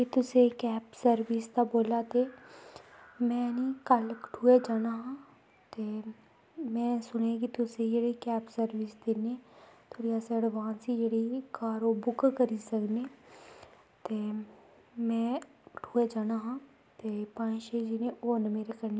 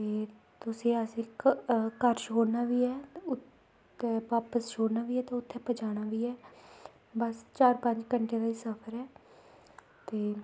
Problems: background sounds at intervals